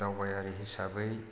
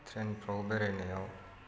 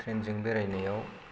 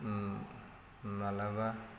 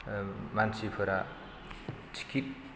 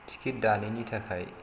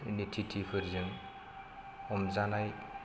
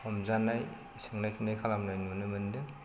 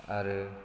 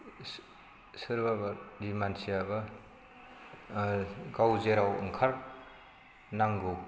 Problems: constant background noise